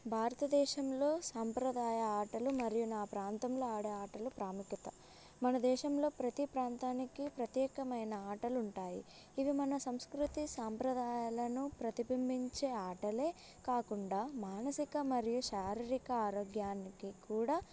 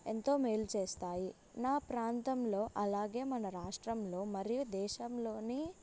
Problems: none marked